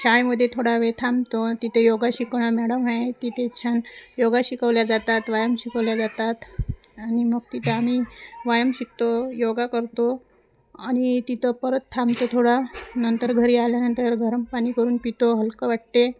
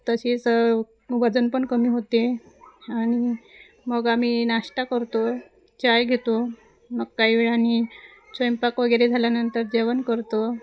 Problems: constant background noise, continuous background conversations